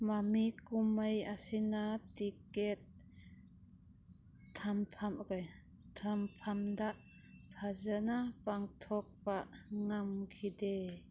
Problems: background sounds at intervals